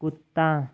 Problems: none marked